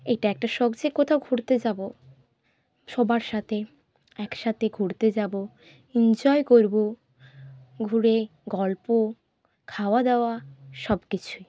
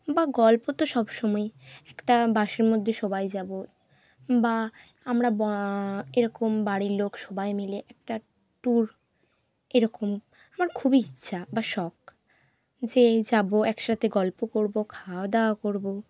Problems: constant background noise